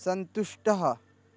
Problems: none marked